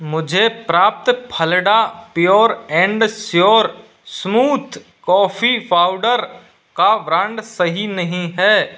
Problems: background sounds at intervals